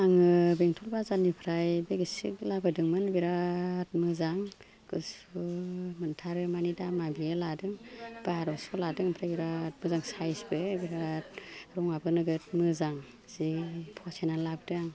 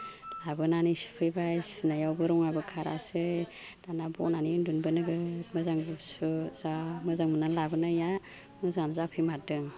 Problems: none marked